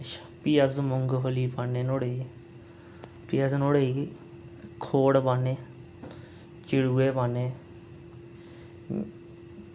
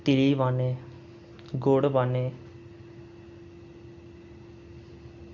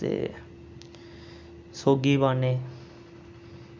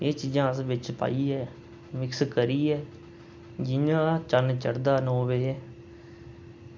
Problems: constant background noise